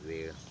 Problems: low volume